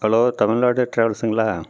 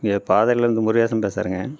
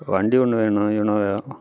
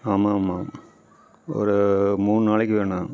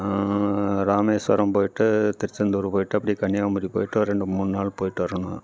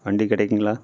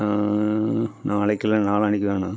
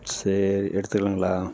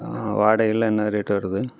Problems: none marked